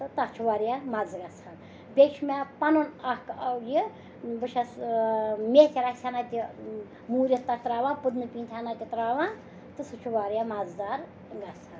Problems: background sounds at intervals, background conversations at intervals